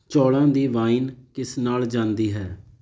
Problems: none marked